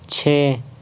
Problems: constant background noise